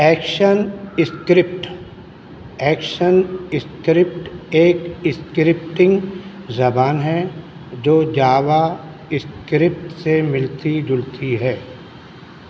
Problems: constant background noise